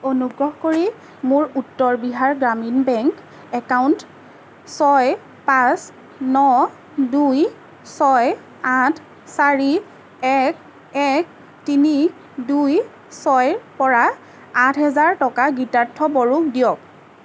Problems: constant background noise